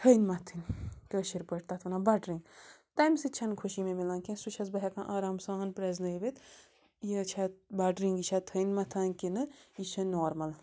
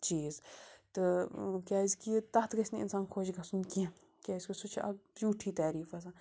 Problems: constant background noise